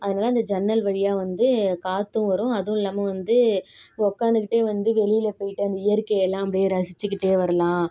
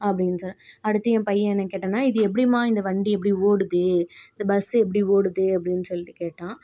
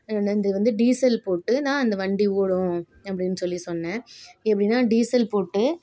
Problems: background sounds at intervals